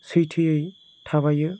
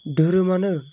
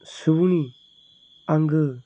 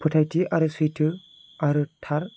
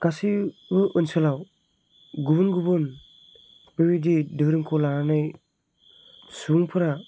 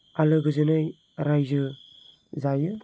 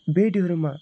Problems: none marked